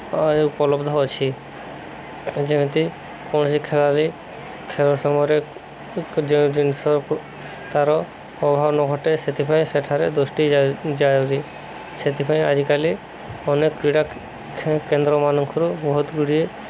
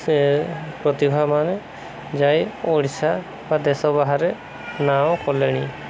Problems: constant background noise